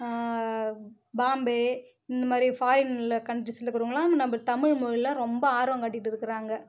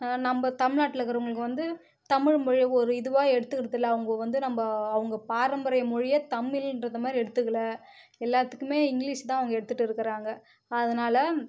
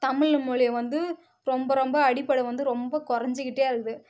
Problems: none marked